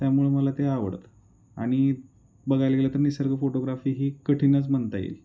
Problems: constant background noise